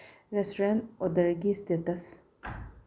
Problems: low volume